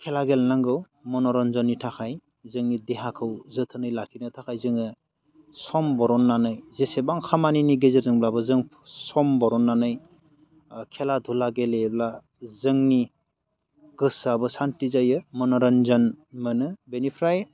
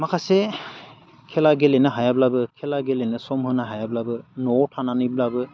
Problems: constant background noise